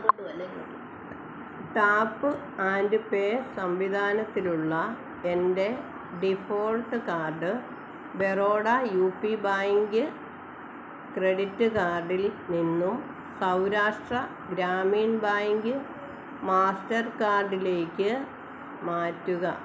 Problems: background conversations at intervals